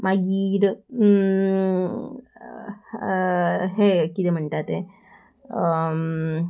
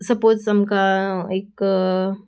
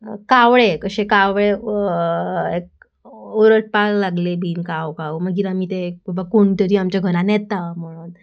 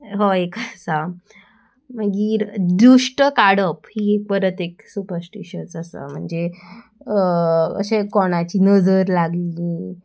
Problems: constant background noise